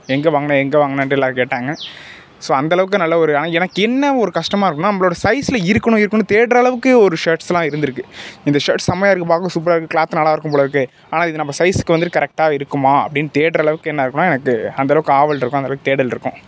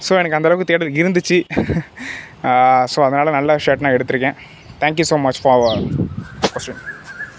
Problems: background sounds at intervals